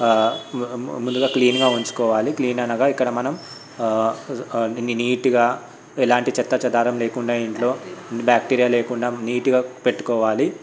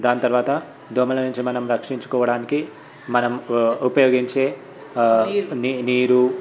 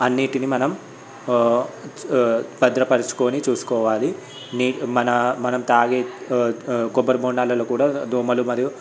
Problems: background sounds at intervals, background conversations at intervals